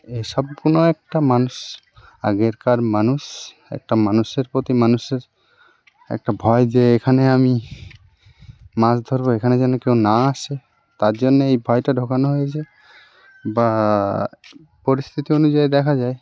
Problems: constant background noise, background conversations at intervals